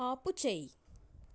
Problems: low volume